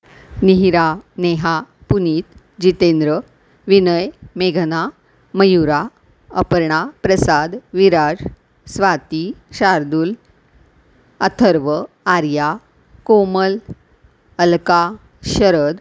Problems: background sounds at intervals